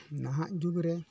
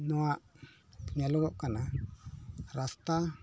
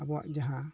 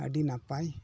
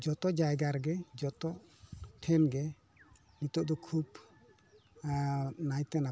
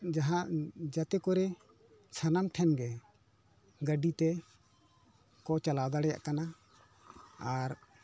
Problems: none marked